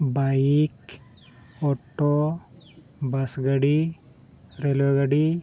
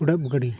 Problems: none marked